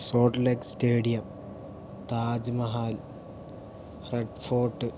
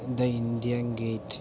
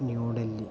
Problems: low volume